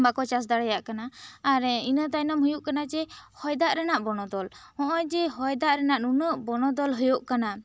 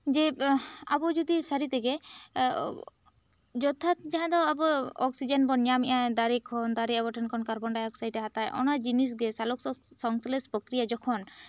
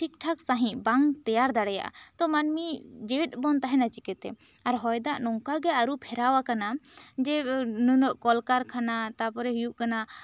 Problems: none marked